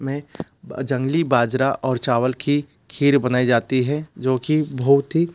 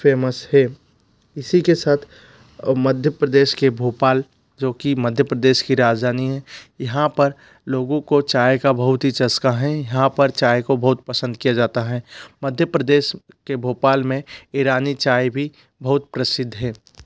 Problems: none marked